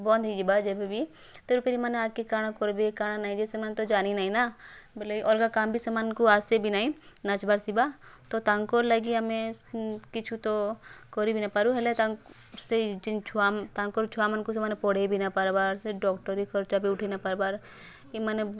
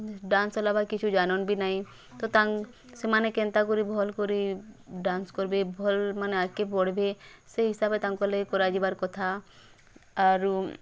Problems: none marked